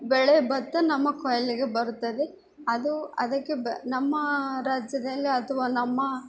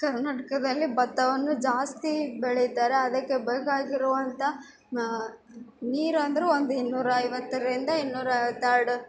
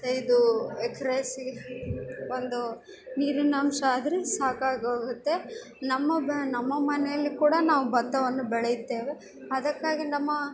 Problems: background sounds at intervals